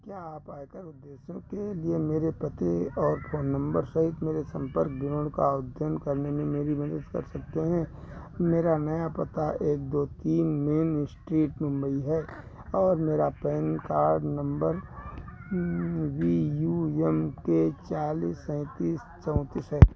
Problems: constant background noise